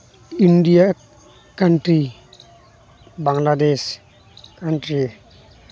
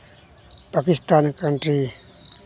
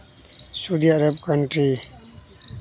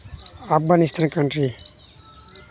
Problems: none marked